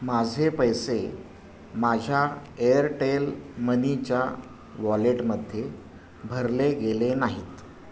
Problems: background sounds at intervals